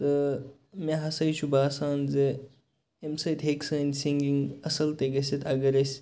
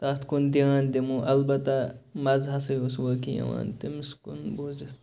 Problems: none marked